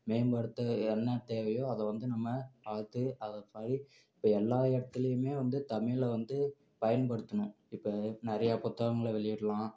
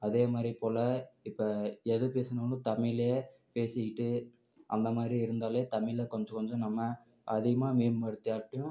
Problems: none marked